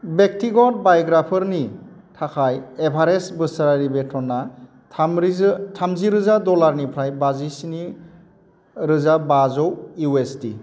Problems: constant background noise